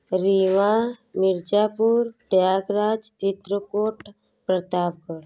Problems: none marked